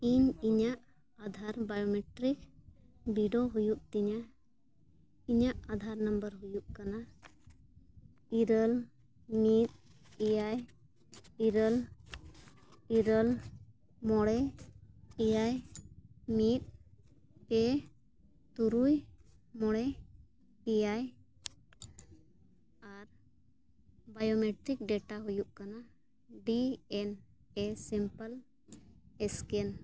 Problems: none marked